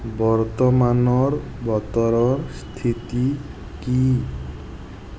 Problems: constant background noise